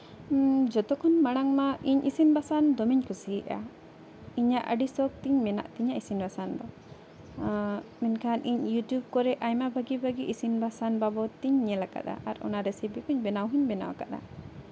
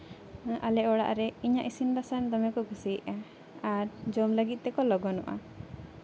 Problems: constant background noise, background conversations at intervals